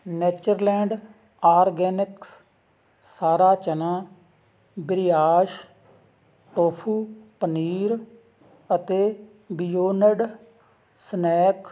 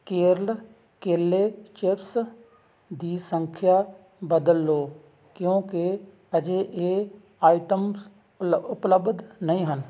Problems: none marked